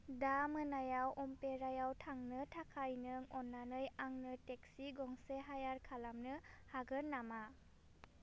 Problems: none marked